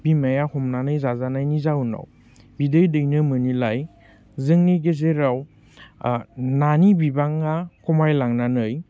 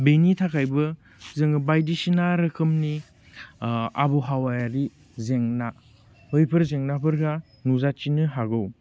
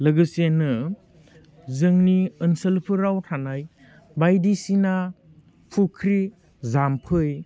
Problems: none marked